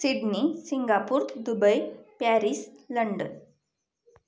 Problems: background sounds at intervals